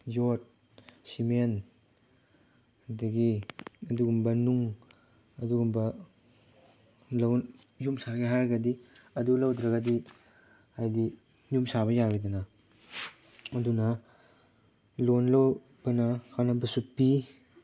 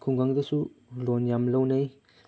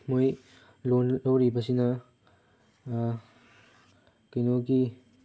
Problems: background sounds at intervals, background conversations at intervals